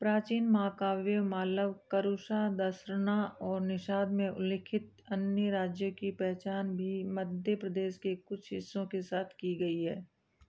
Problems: low volume